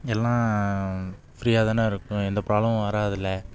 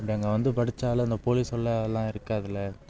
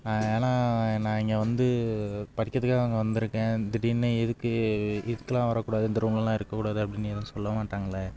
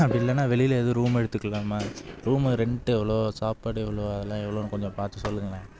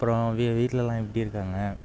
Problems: background sounds at intervals